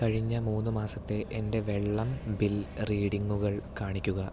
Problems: none marked